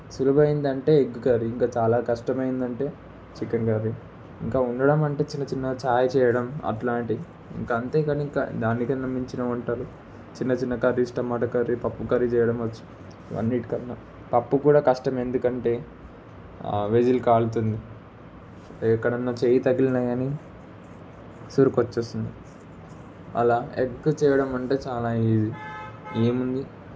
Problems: constant background noise